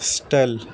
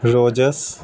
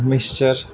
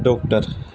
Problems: constant background noise